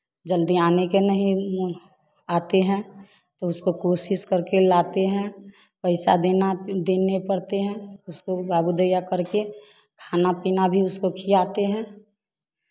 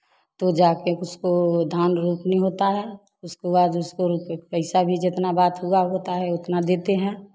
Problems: none marked